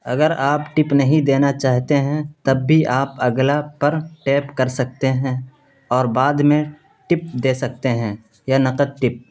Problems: constant background noise